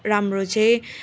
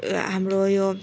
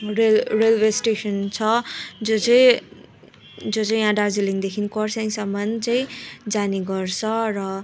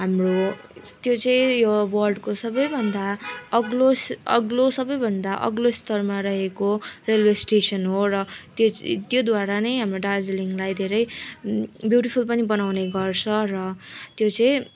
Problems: none marked